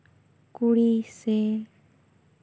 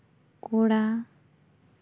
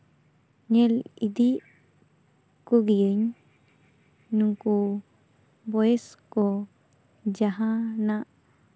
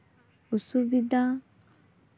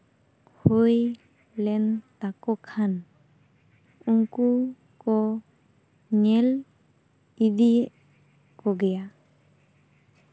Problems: constant background noise